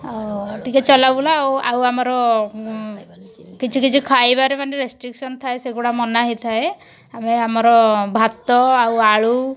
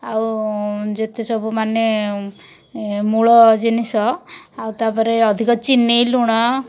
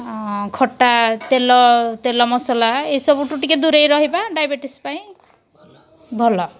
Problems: background sounds at intervals